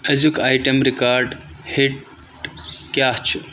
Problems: constant background noise